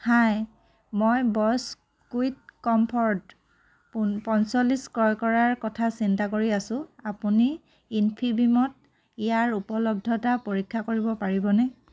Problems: none marked